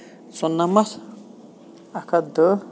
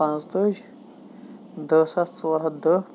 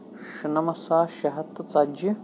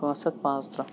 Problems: constant background noise